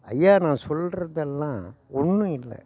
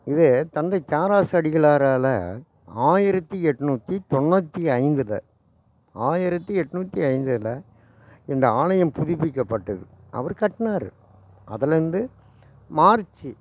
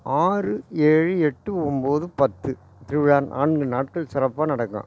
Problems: none marked